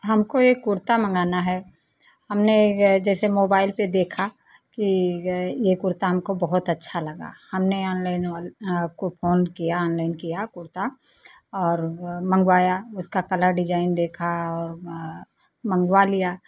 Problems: none marked